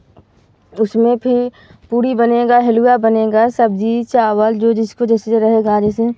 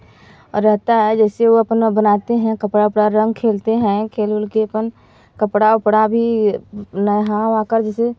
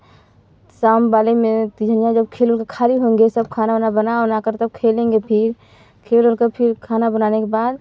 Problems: background sounds at intervals